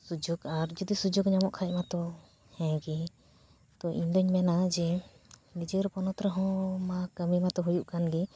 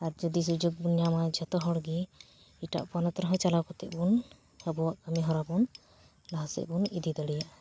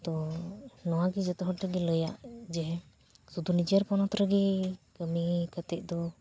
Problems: background sounds at intervals